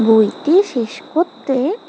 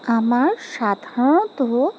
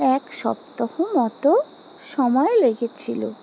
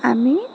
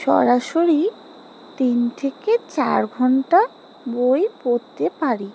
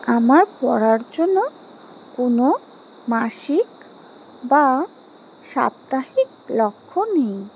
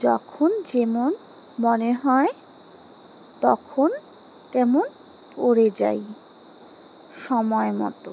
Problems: background sounds at intervals